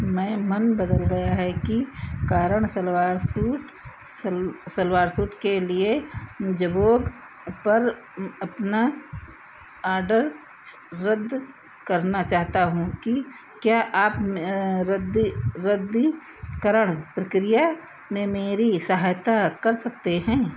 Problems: none marked